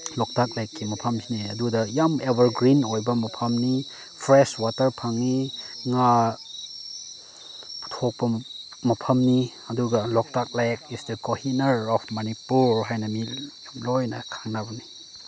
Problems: constant background noise